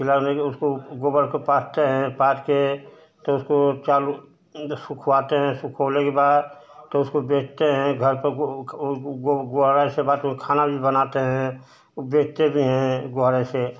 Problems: constant background noise